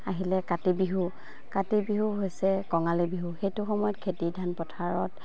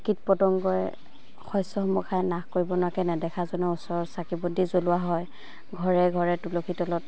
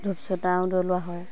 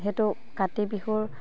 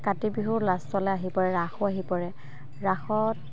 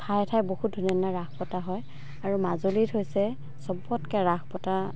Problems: constant background noise, background conversations at intervals